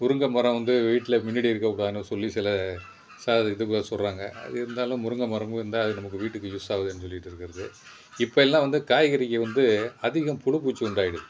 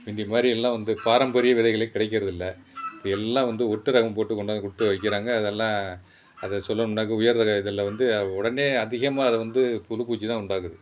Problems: background sounds at intervals